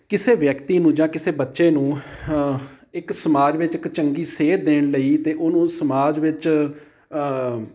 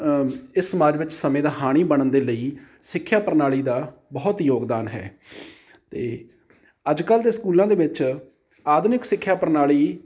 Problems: background sounds at intervals